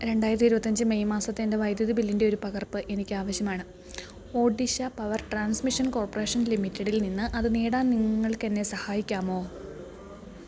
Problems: low volume